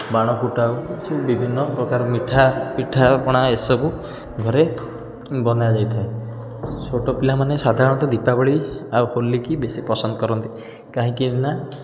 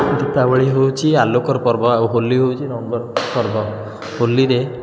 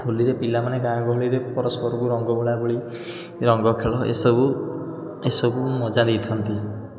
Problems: constant background noise